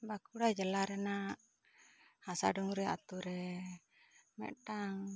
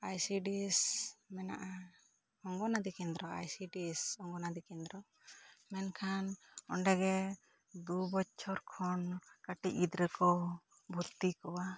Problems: none marked